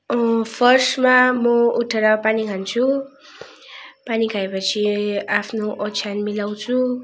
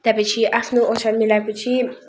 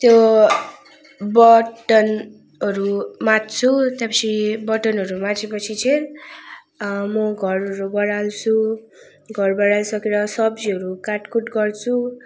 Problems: none marked